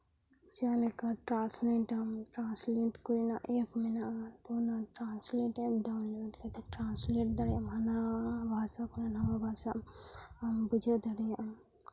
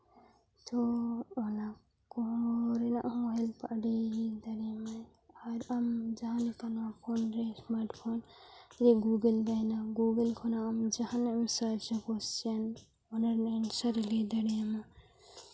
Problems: none marked